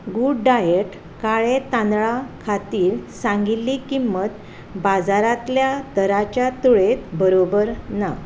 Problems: background sounds at intervals